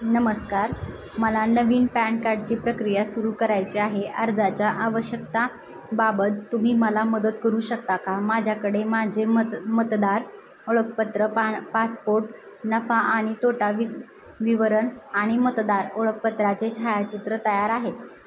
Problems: constant background noise